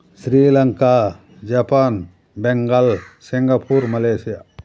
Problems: background sounds at intervals